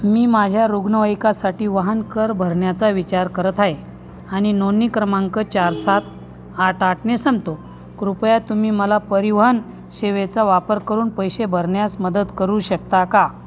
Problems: background sounds at intervals